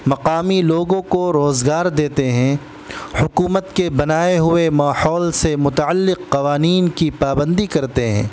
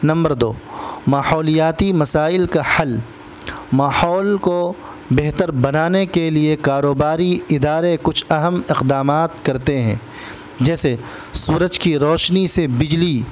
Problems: constant background noise